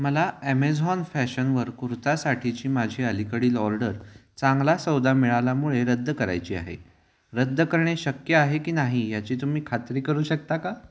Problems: none marked